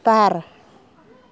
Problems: background conversations at intervals